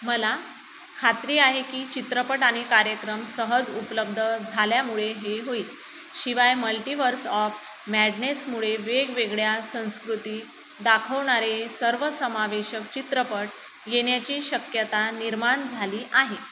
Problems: constant background noise